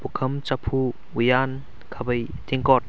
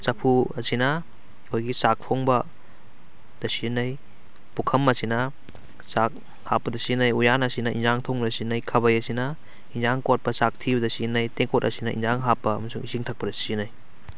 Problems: none marked